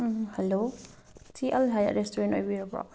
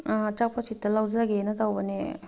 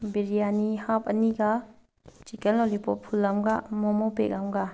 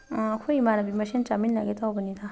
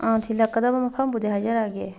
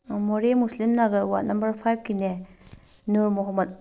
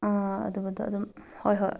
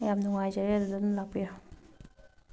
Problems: background sounds at intervals